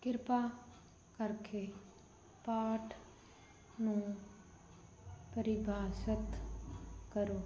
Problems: none marked